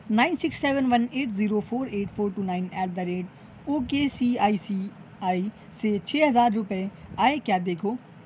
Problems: none marked